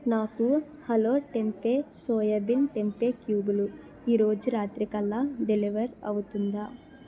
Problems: background conversations at intervals